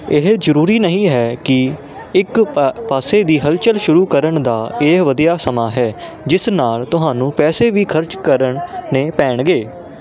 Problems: none marked